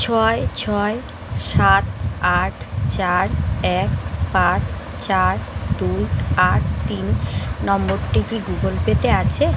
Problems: constant background noise